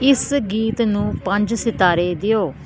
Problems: constant background noise